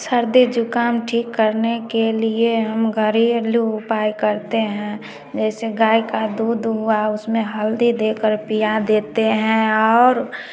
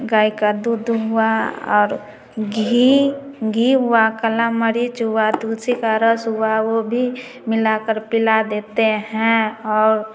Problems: background sounds at intervals, continuous background conversations, echo